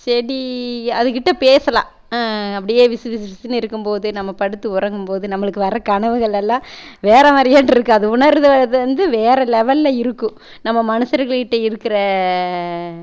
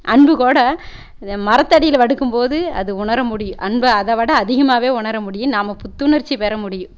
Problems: none marked